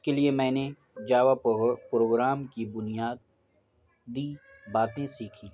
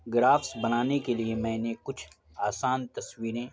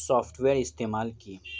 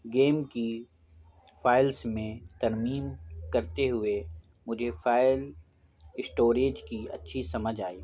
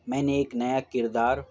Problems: constant background noise